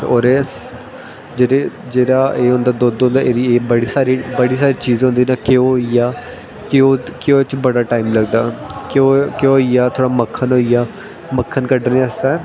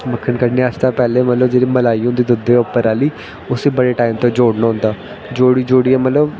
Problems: constant background noise